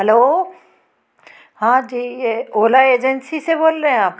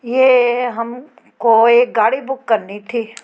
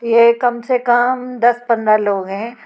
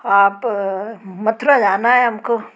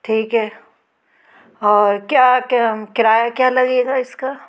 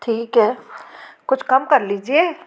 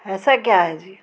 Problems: none marked